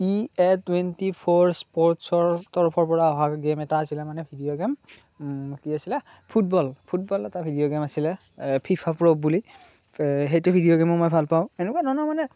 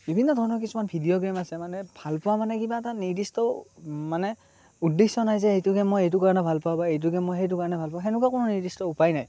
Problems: constant background noise